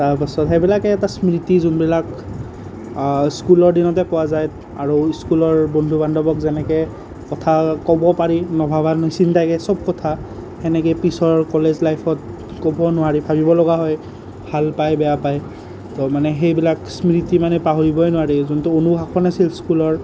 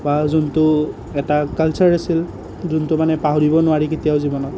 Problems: none marked